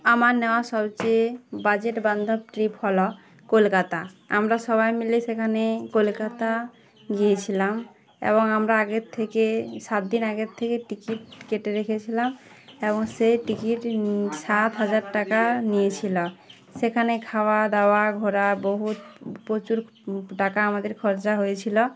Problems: none marked